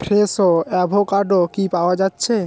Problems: background sounds at intervals